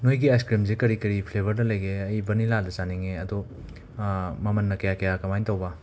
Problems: constant background noise